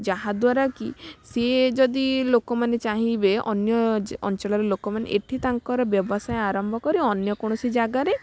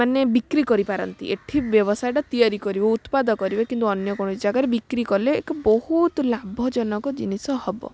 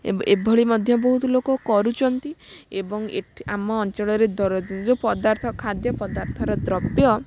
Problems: constant background noise